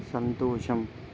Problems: constant background noise